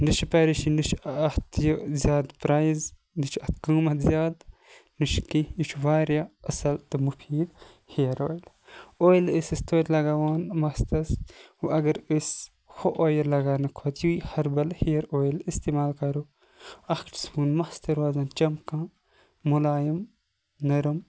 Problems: background sounds at intervals